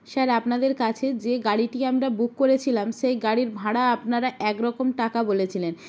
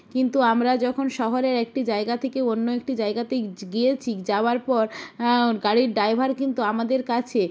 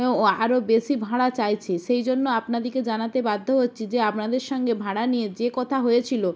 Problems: none marked